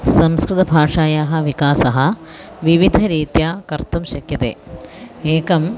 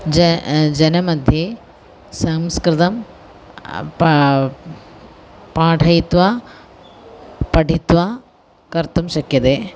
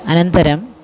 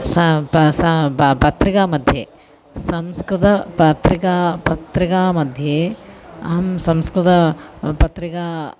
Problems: constant background noise, continuous background conversations